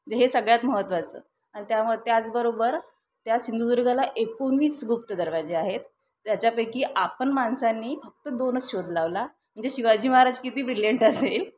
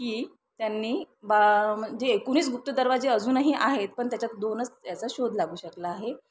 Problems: none marked